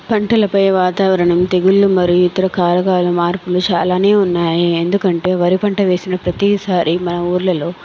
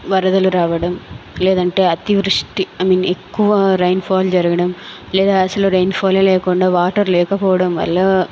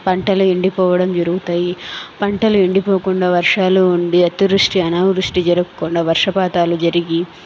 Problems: none marked